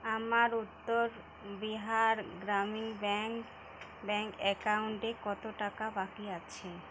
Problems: constant background noise